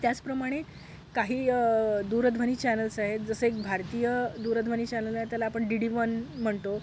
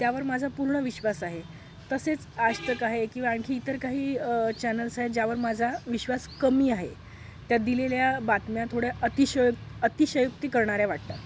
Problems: none marked